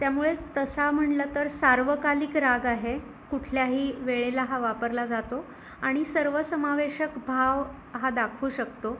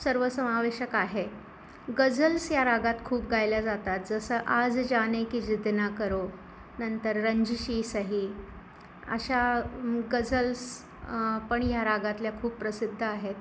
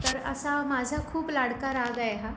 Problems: background sounds at intervals, background conversations at intervals